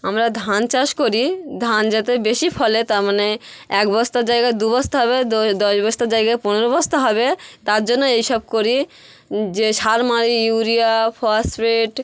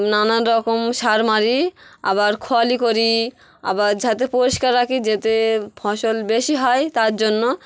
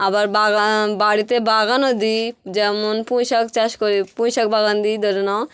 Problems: none marked